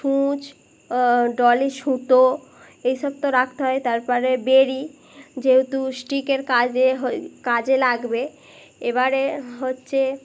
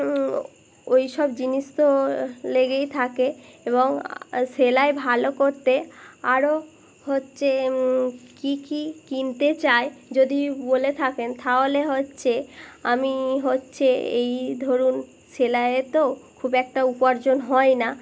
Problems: constant background noise